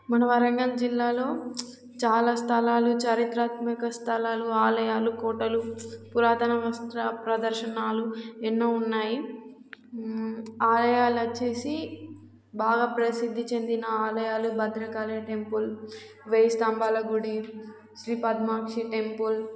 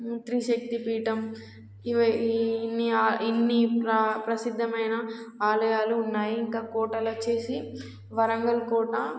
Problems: constant background noise